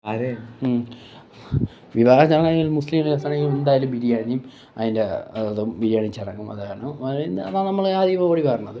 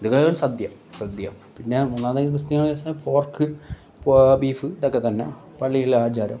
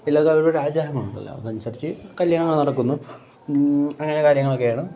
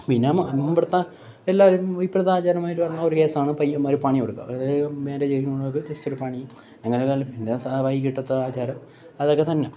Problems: background sounds at intervals